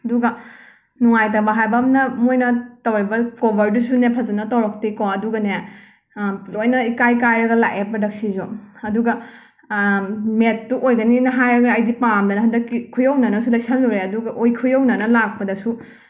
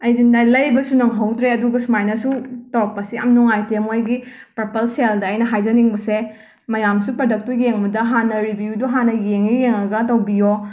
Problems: background sounds at intervals